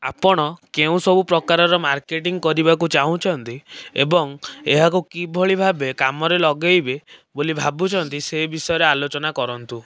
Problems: none marked